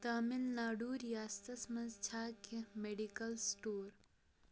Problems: low volume